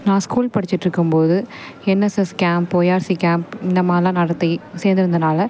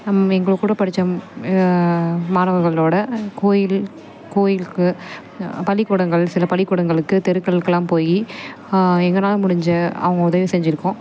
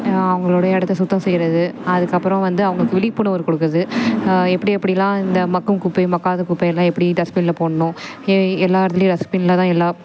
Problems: background conversations at intervals